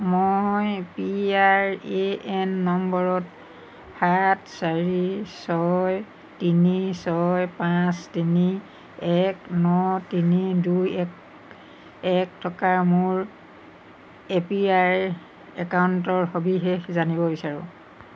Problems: none marked